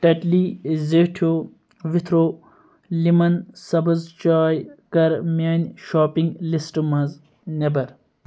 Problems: none marked